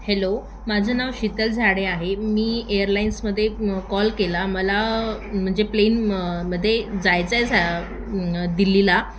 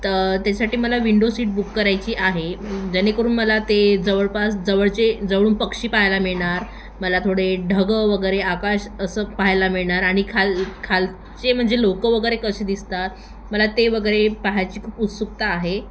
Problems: constant background noise, echo